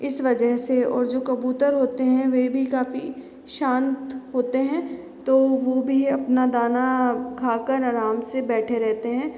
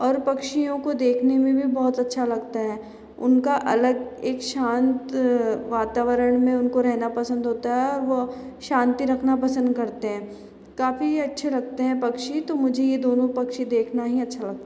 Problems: background sounds at intervals, echo